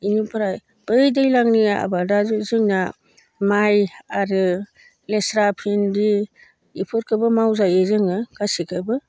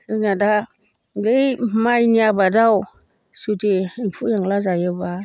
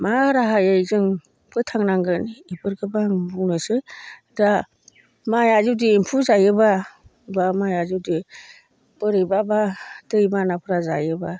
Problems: low volume